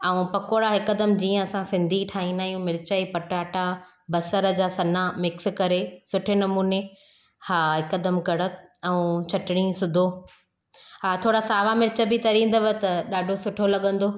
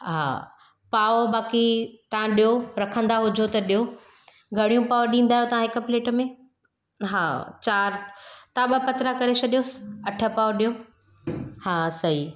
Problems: none marked